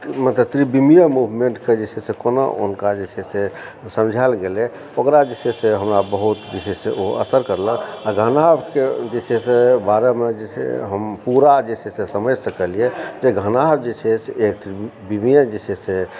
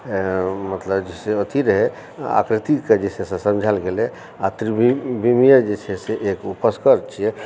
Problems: constant background noise